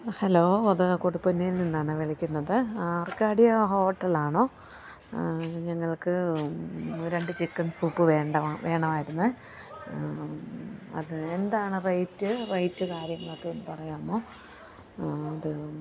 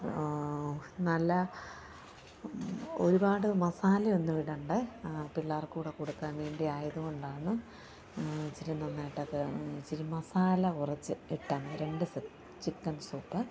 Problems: constant background noise